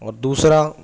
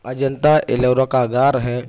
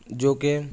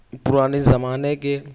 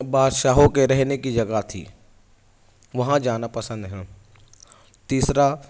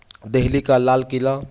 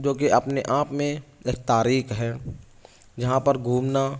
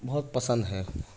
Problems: background sounds at intervals